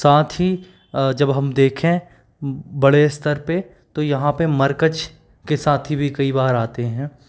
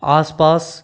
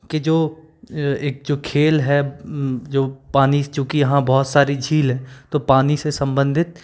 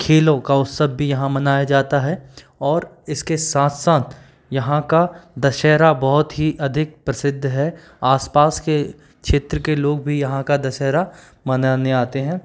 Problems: background sounds at intervals